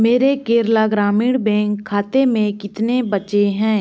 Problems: constant background noise